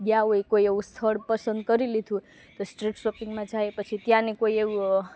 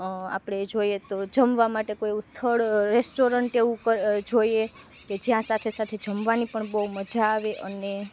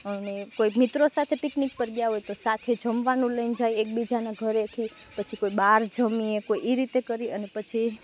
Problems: none marked